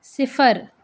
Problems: none marked